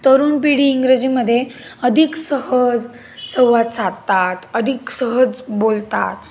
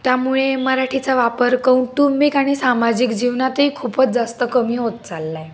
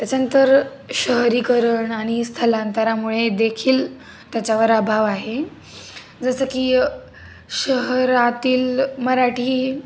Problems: constant background noise, background conversations at intervals